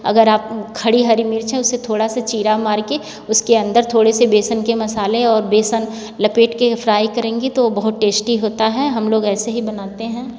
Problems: none marked